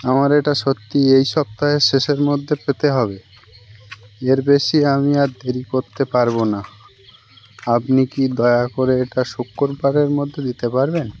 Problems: constant background noise